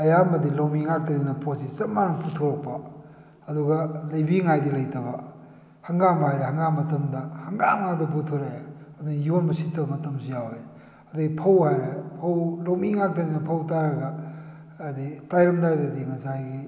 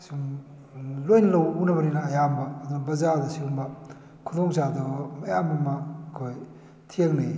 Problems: none marked